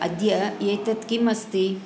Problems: none marked